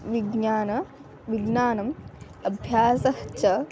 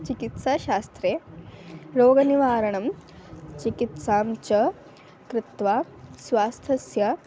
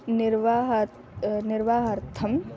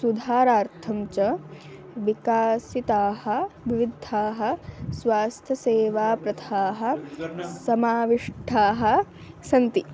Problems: continuous background conversations